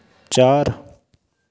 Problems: none marked